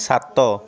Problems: constant background noise, continuous background conversations